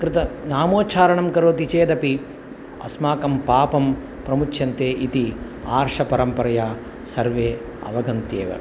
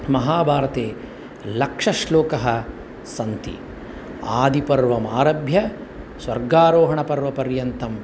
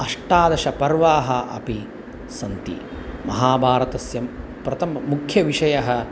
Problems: none marked